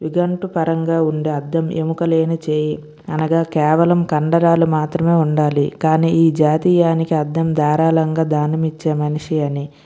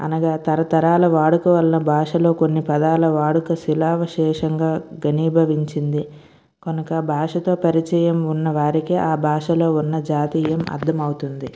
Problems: none marked